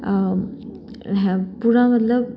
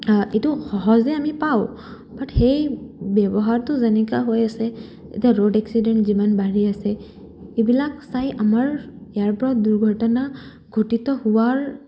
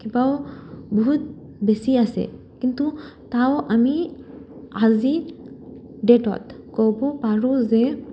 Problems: none marked